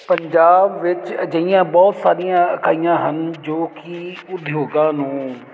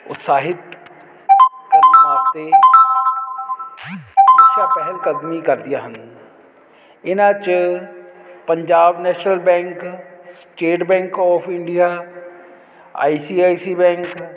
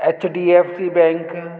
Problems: constant background noise